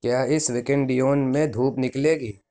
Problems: none marked